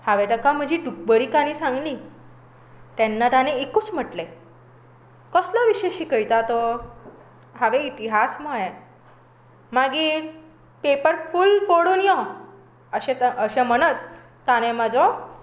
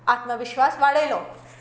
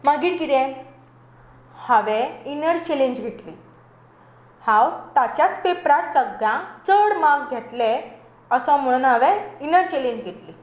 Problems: constant background noise